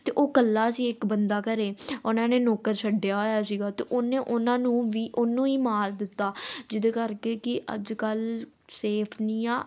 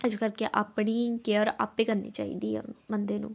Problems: background sounds at intervals